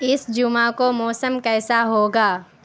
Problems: constant background noise